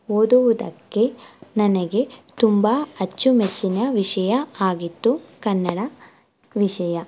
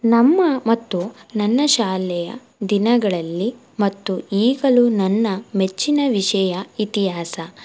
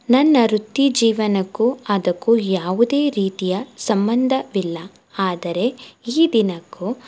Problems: none marked